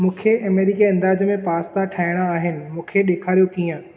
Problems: echo